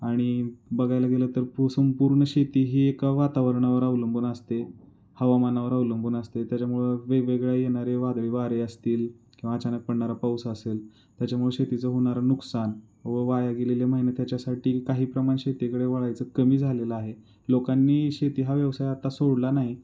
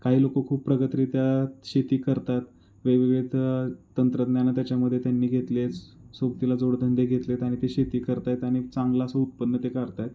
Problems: none marked